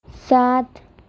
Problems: none marked